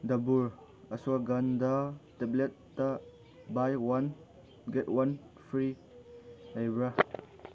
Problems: none marked